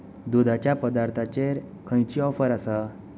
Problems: constant background noise